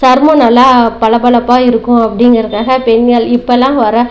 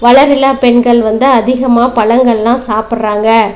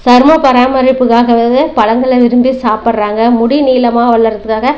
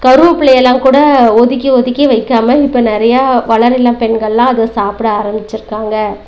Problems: none marked